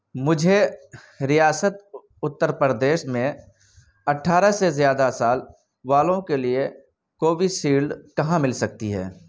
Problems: background sounds at intervals